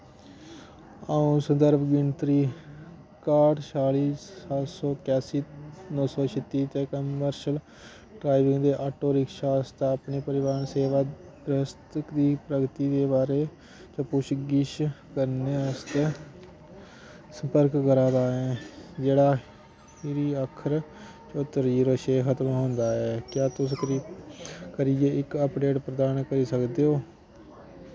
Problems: constant background noise